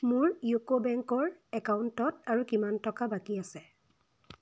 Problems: none marked